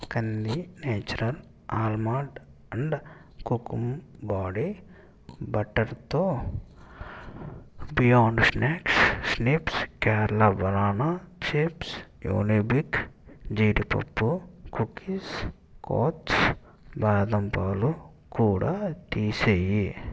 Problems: none marked